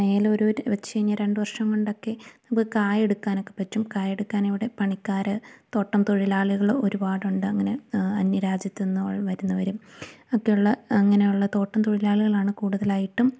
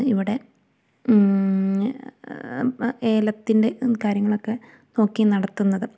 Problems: none marked